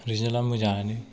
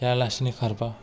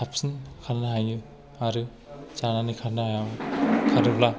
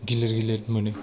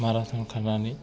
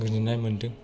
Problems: background sounds at intervals